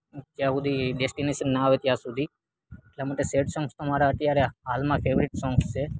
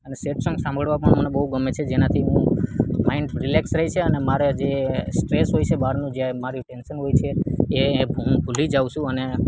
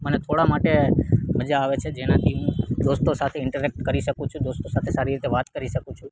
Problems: none marked